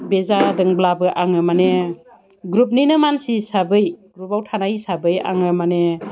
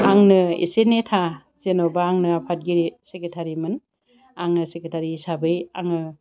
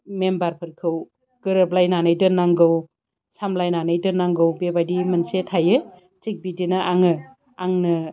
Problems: constant background noise